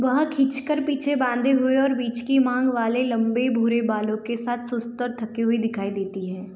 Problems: background sounds at intervals